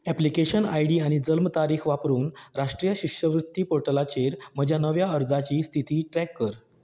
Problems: none marked